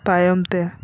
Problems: constant background noise